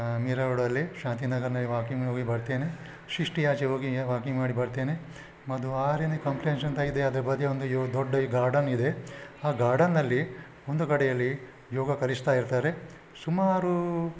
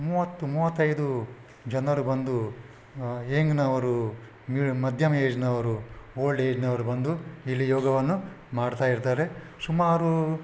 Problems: none marked